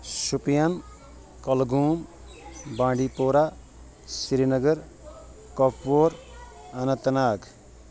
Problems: constant background noise